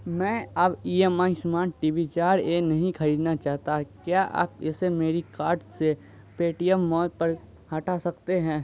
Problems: constant background noise